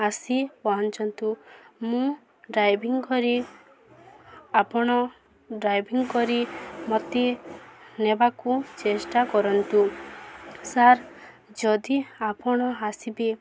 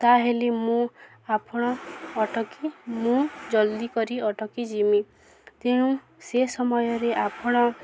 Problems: constant background noise, continuous background conversations